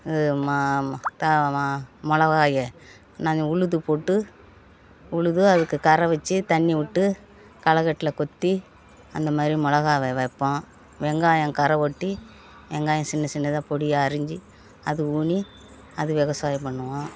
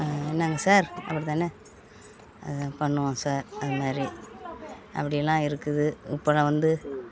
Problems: background conversations at intervals